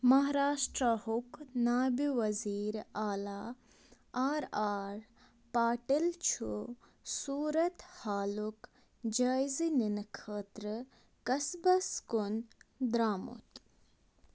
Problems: constant background noise